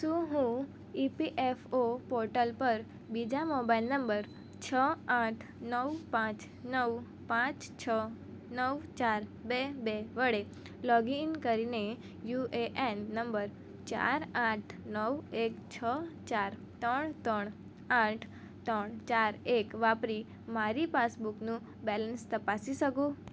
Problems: none marked